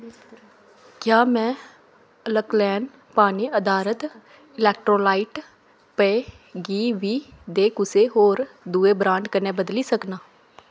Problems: none marked